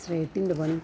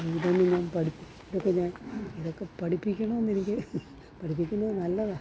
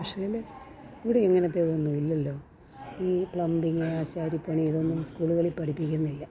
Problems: low volume